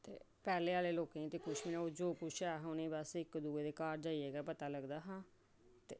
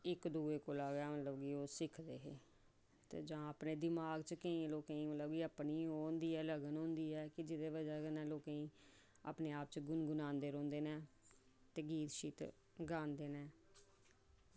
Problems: none marked